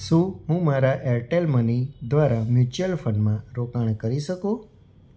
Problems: none marked